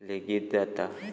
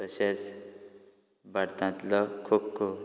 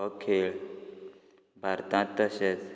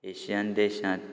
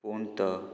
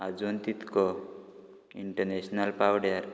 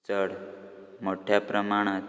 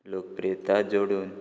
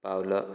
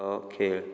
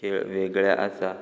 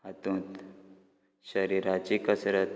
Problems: background sounds at intervals